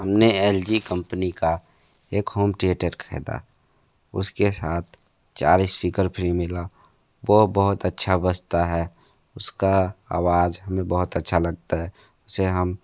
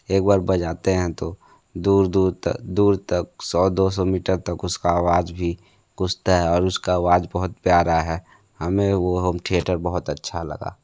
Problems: background sounds at intervals